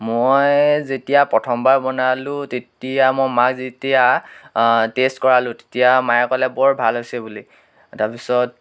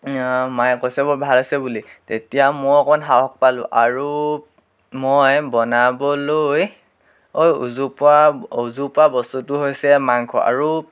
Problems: background sounds at intervals